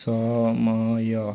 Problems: constant background noise, continuous background conversations